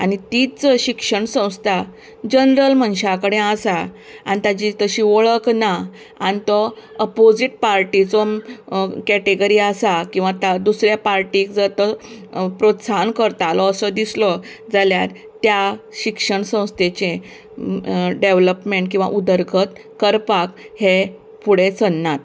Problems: constant background noise